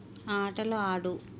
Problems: constant background noise